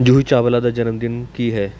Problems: constant background noise